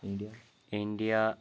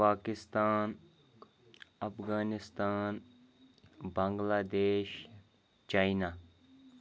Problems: background conversations at intervals